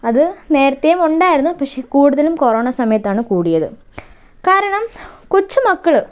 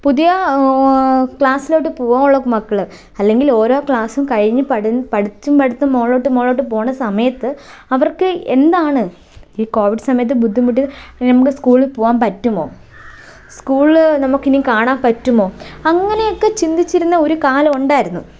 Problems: none marked